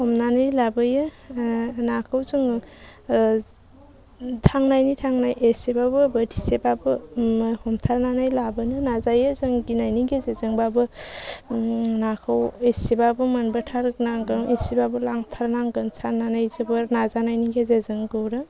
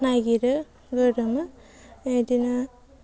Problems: low volume